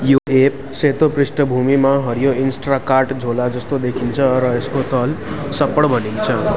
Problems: continuous background conversations